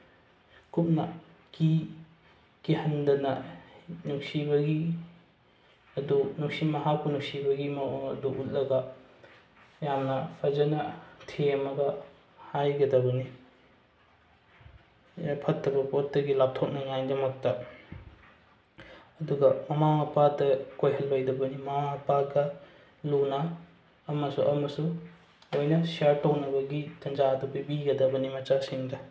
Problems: background sounds at intervals